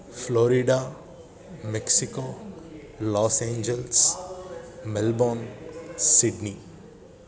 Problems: constant background noise